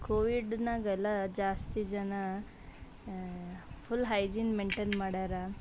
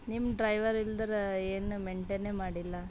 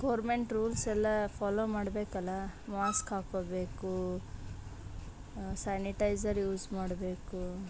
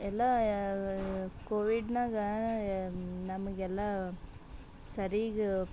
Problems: background sounds at intervals